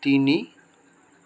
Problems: none marked